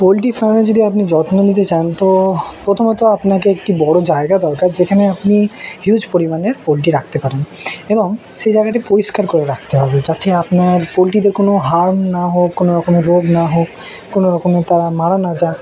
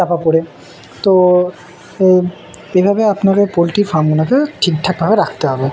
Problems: constant background noise, continuous background conversations